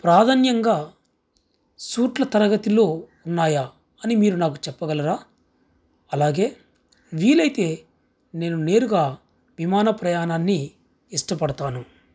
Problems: background sounds at intervals